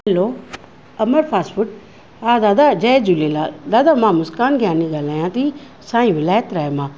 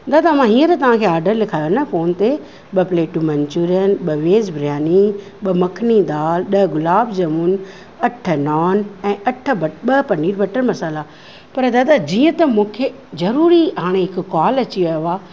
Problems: none marked